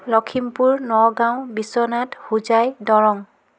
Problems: background conversations at intervals